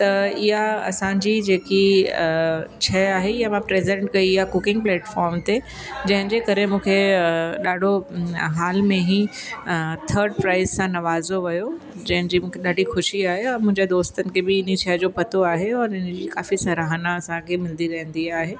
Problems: constant background noise